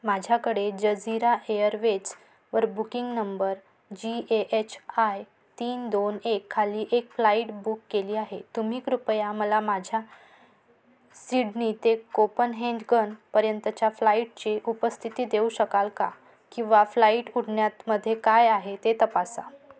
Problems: background sounds at intervals